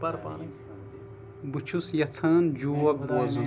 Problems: background sounds at intervals, background conversations at intervals